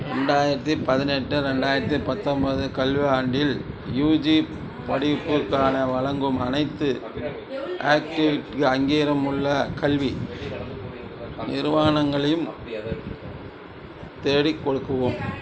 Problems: background conversations at intervals